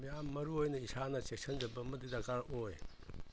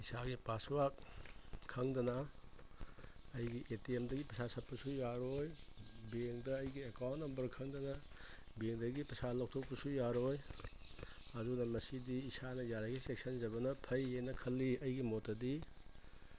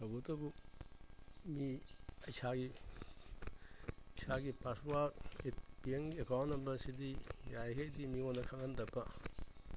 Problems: constant background noise